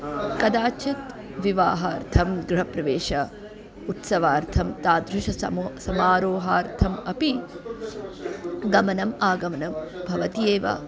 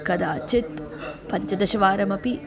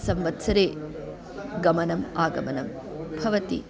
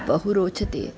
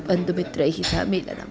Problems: continuous background conversations